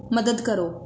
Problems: constant background noise